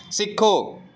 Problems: background sounds at intervals